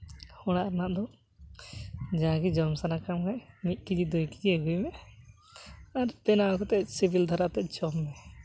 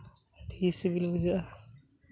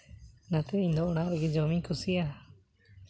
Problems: background sounds at intervals